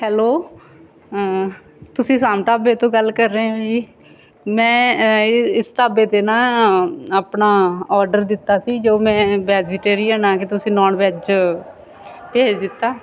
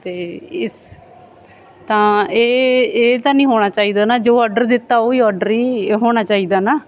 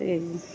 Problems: background sounds at intervals